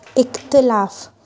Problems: constant background noise